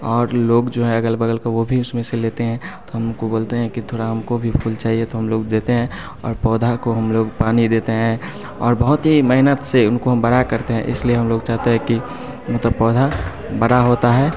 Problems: background sounds at intervals